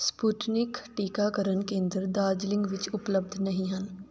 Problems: background sounds at intervals